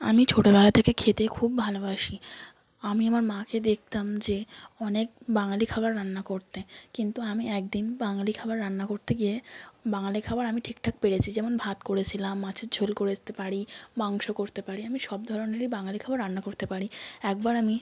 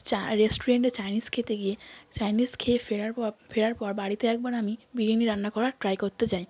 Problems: background sounds at intervals, background conversations at intervals